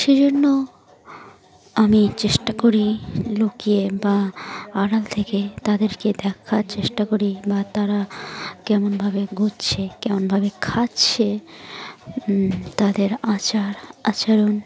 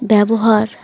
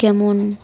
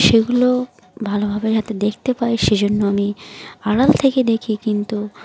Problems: constant background noise, continuous background conversations